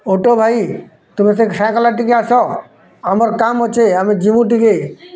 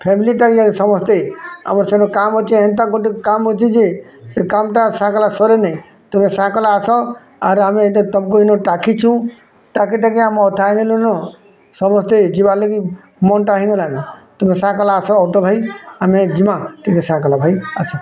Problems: constant background noise, continuous background conversations